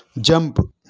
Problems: none marked